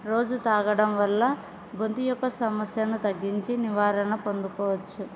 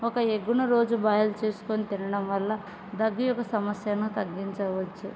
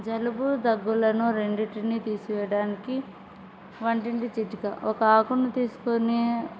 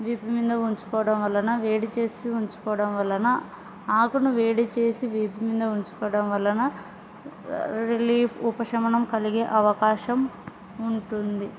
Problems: background sounds at intervals